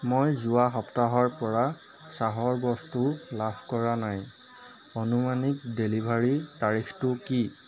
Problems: constant background noise, background conversations at intervals